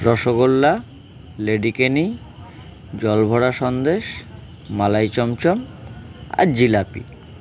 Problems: continuous background conversations